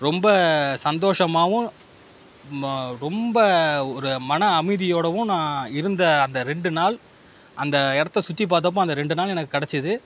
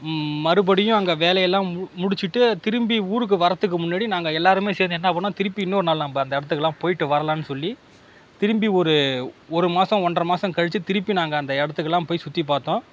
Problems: constant background noise